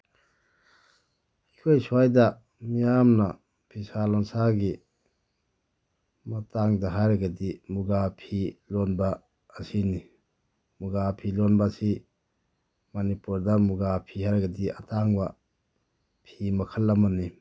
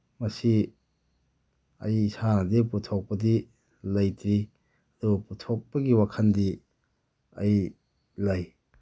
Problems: low volume